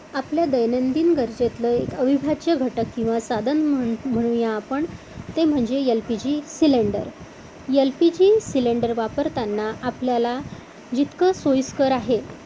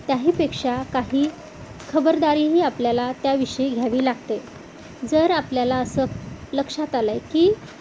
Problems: none marked